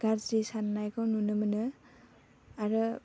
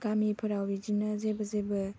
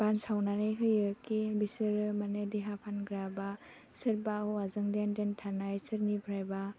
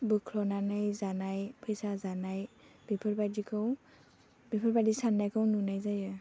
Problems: low volume